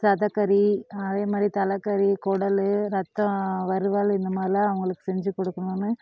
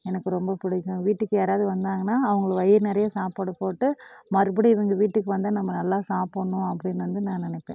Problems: none marked